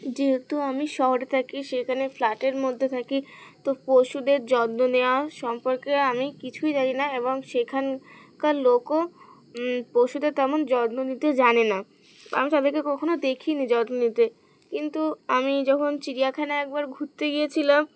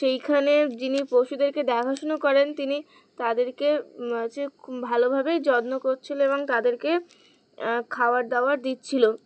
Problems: background sounds at intervals